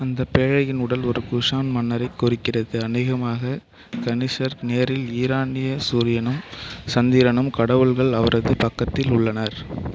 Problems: background sounds at intervals